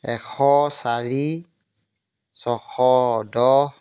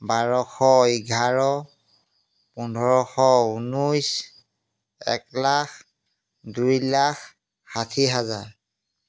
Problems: background sounds at intervals